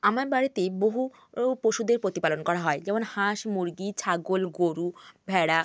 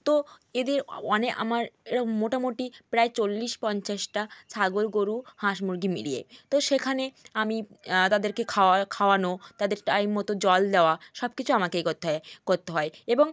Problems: none marked